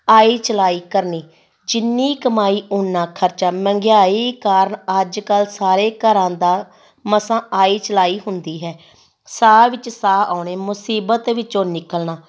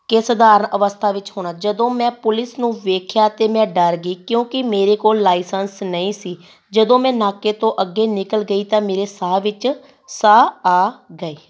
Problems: none marked